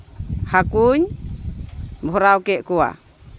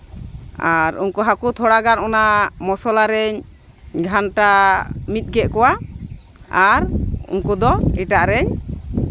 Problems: constant background noise, continuous background conversations